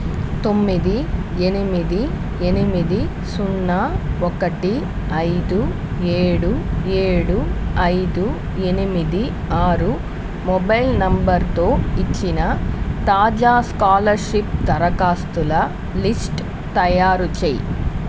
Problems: constant background noise